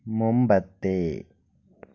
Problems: low volume